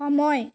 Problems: none marked